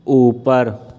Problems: none marked